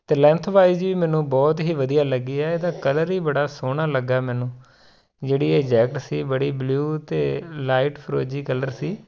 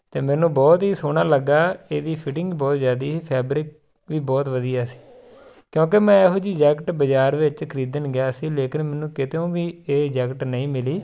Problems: constant background noise